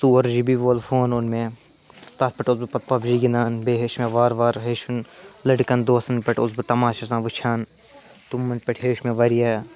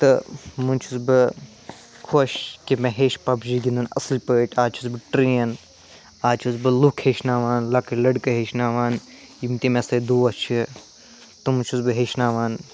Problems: constant background noise